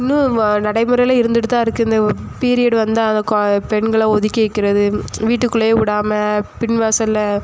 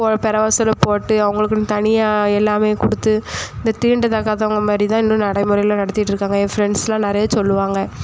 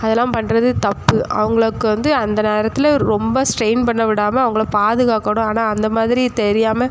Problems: constant background noise